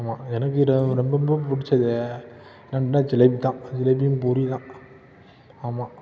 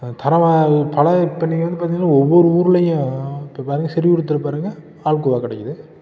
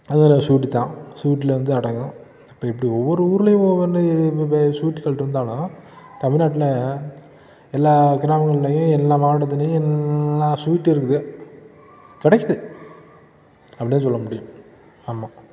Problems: background conversations at intervals